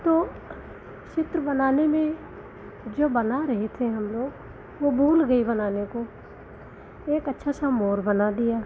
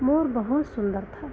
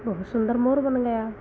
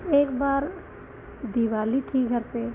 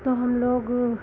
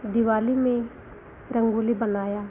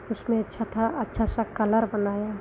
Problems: constant background noise